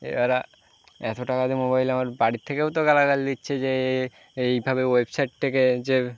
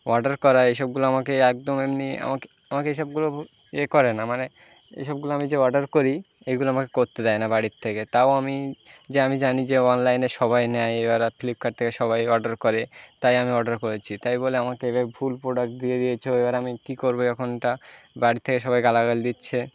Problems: constant background noise